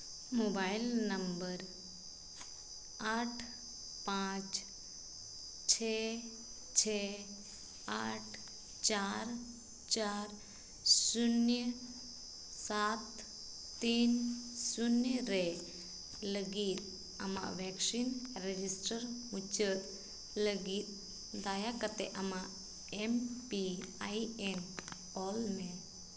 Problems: constant background noise, echo